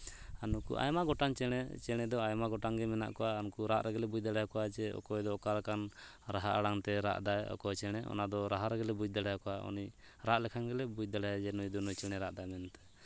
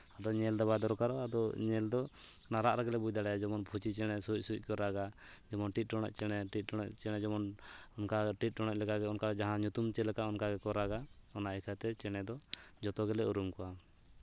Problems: background sounds at intervals